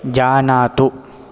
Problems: none marked